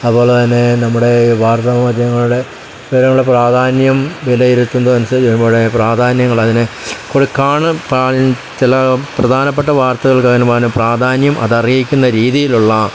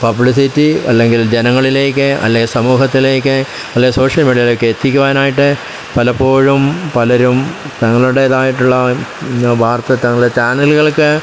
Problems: constant background noise